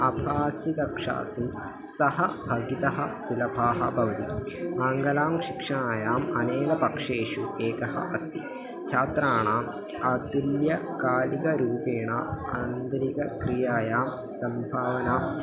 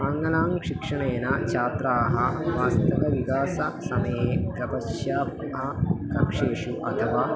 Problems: none marked